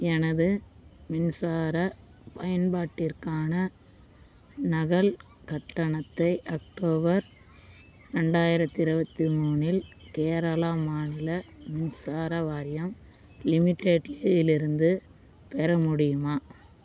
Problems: constant background noise